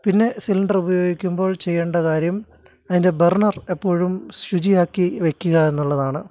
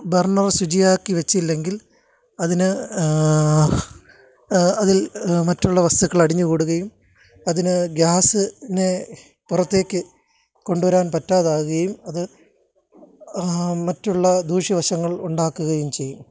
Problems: none marked